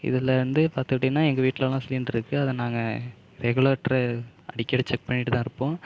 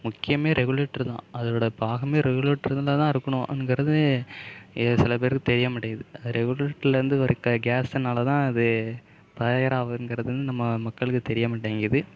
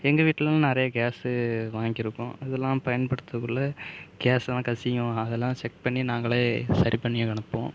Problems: background sounds at intervals